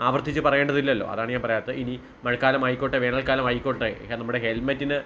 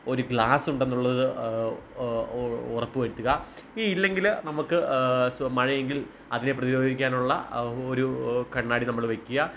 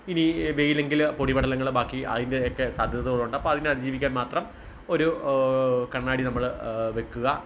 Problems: background sounds at intervals